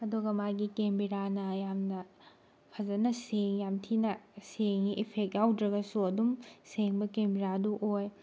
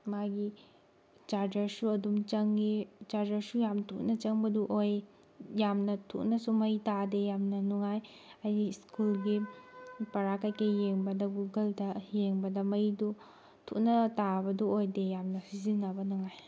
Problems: background sounds at intervals